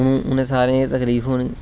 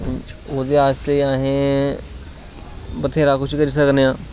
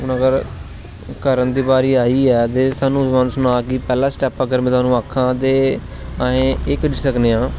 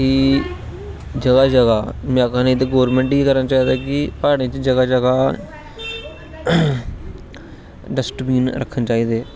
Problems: constant background noise